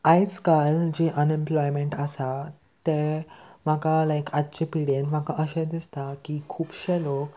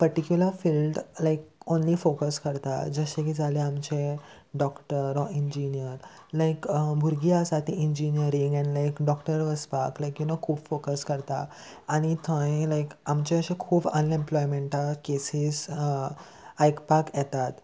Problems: constant background noise